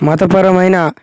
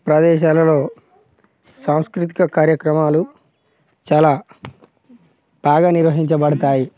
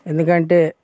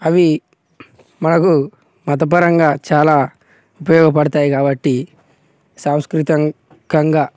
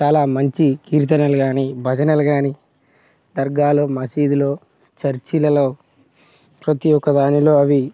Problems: constant background noise, background conversations at intervals